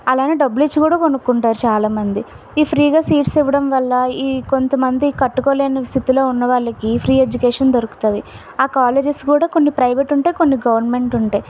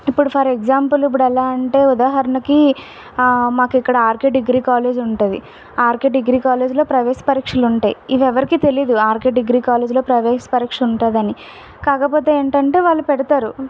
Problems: background sounds at intervals